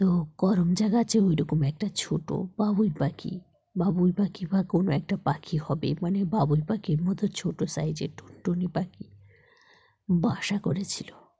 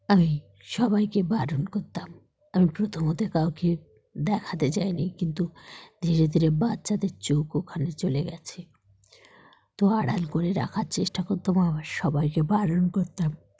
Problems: background sounds at intervals